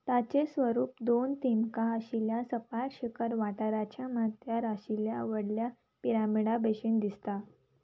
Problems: background sounds at intervals